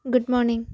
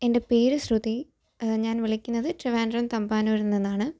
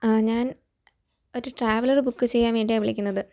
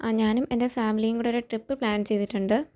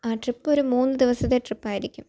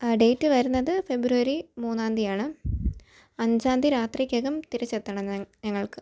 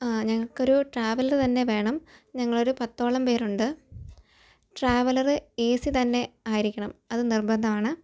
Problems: none marked